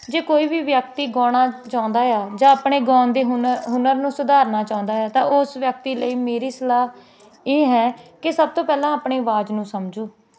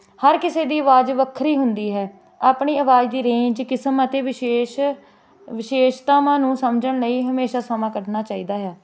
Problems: constant background noise